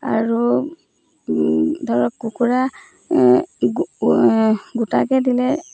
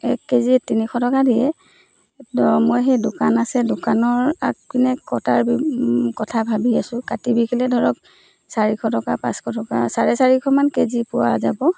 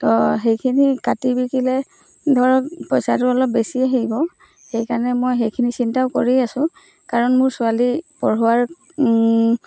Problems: none marked